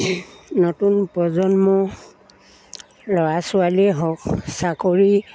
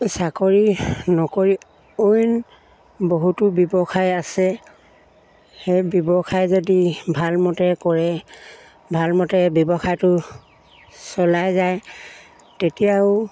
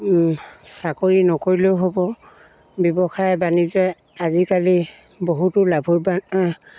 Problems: background sounds at intervals